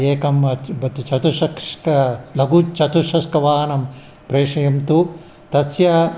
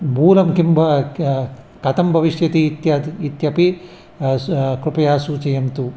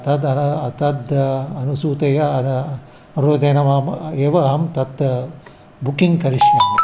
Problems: background sounds at intervals